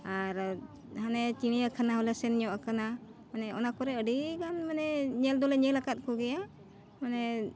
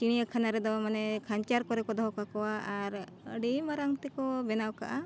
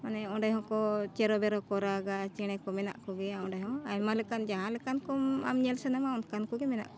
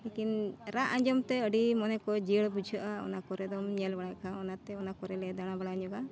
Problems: none marked